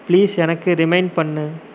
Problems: constant background noise